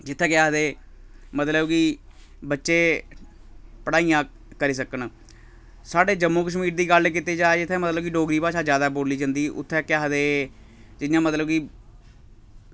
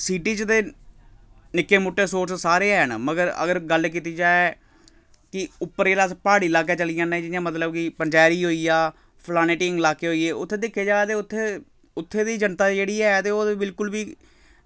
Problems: background sounds at intervals